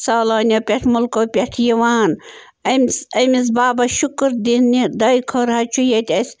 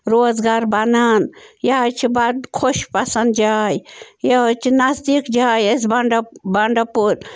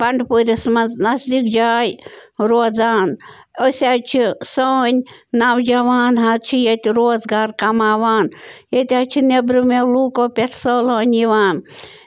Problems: background sounds at intervals